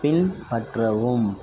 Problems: background sounds at intervals